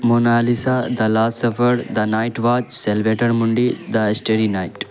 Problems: constant background noise